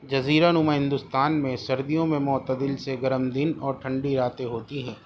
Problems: constant background noise